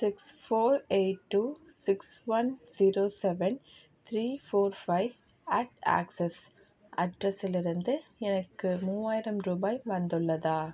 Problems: none marked